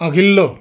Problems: background sounds at intervals